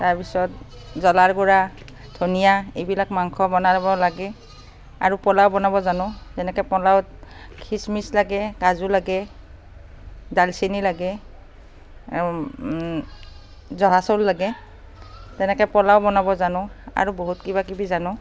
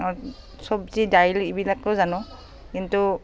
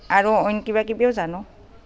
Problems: constant background noise, background conversations at intervals